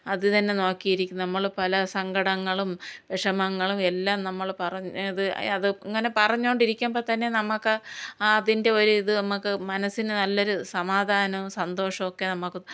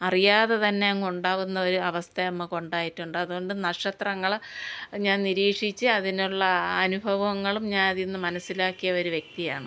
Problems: none marked